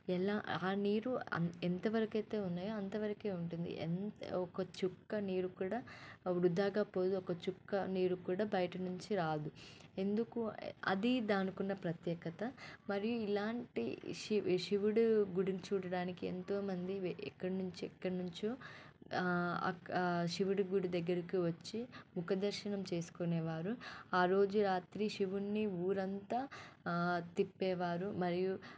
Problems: background sounds at intervals, low volume